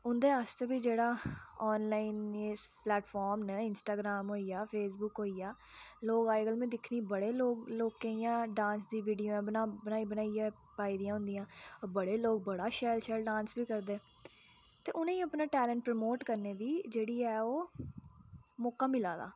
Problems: low volume